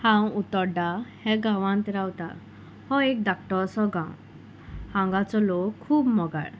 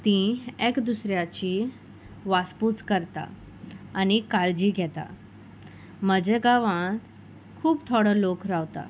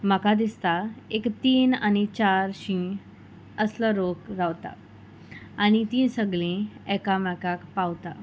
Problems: background sounds at intervals